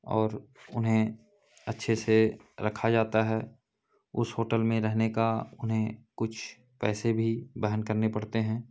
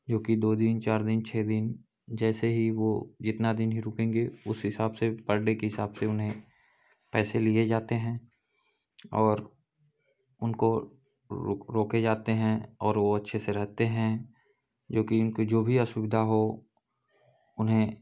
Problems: background sounds at intervals, background conversations at intervals